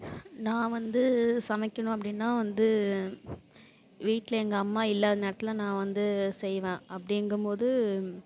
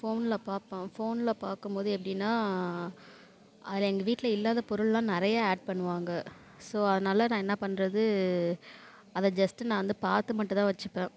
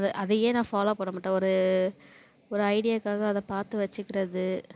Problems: none marked